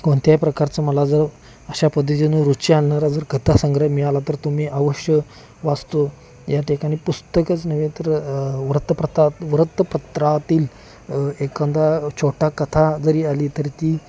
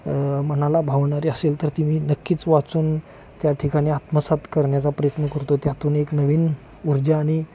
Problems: constant background noise, continuous background conversations